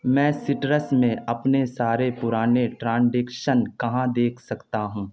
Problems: constant background noise